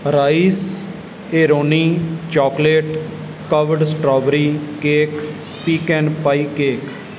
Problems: background sounds at intervals